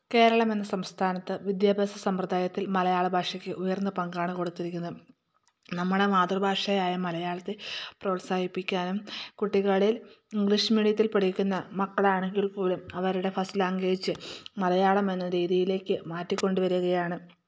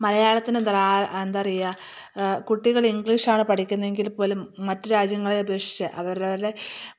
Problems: none marked